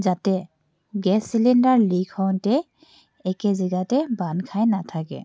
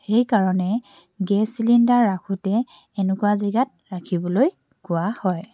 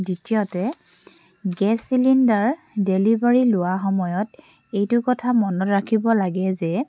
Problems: background sounds at intervals